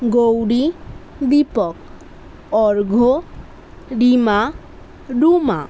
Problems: none marked